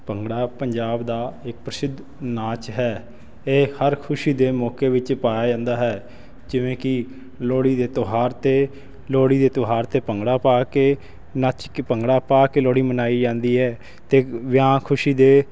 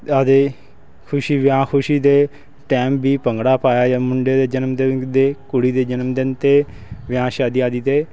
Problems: constant background noise